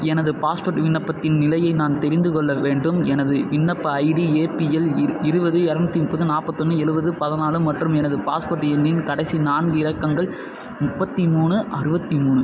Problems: constant background noise